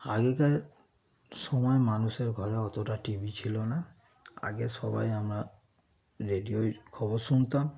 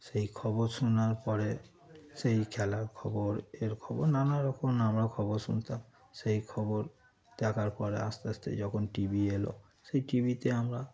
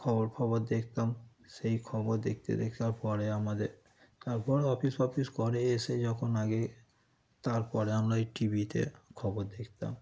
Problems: background sounds at intervals